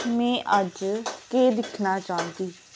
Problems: constant background noise